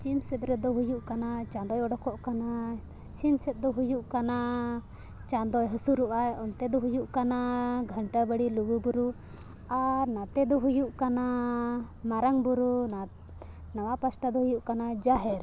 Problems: constant background noise